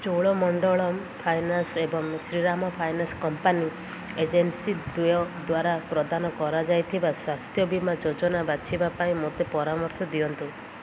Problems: none marked